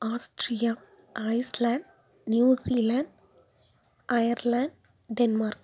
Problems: none marked